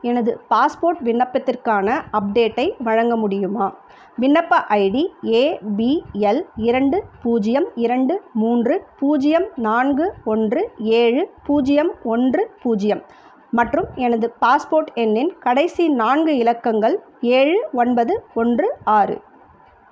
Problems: none marked